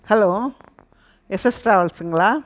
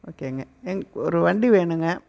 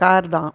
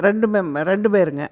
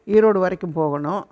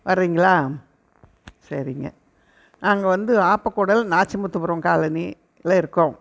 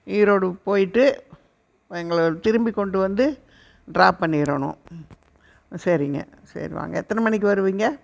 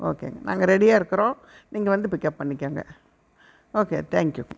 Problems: none marked